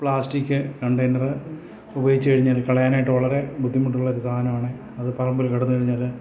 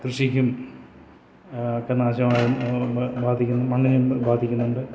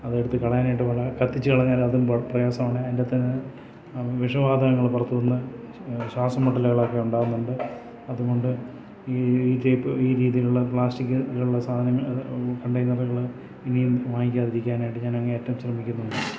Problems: none marked